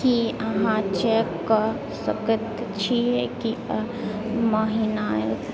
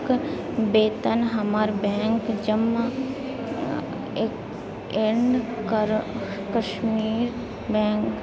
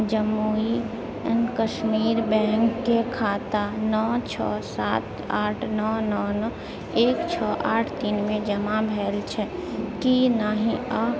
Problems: continuous background conversations, low volume